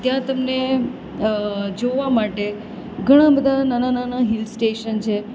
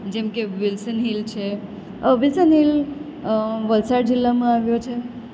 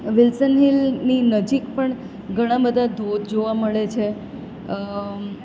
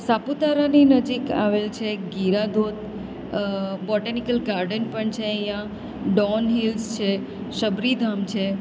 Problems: constant background noise